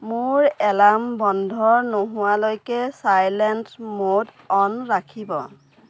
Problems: constant background noise